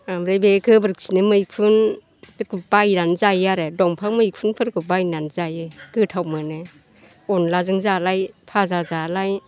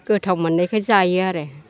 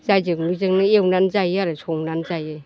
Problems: none marked